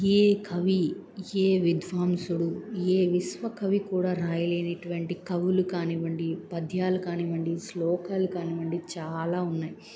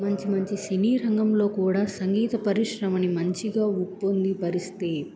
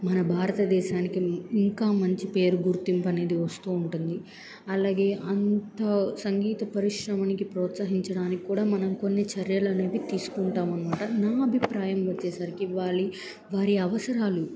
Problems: none marked